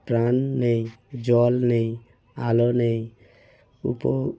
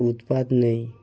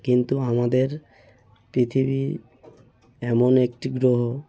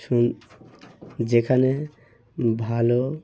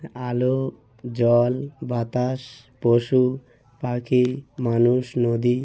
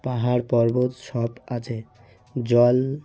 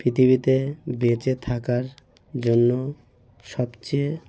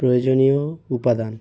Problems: background conversations at intervals